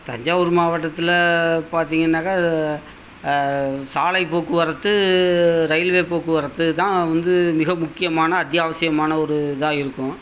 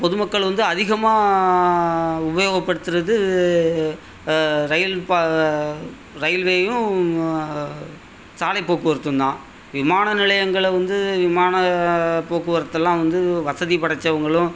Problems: constant background noise